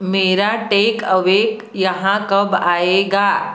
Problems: constant background noise